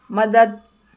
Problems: none marked